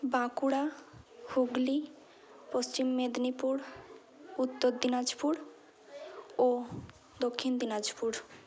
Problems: continuous background conversations